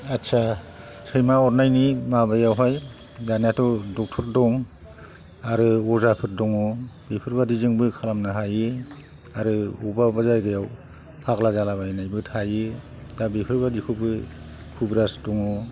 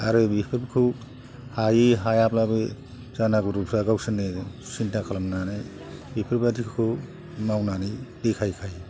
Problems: low volume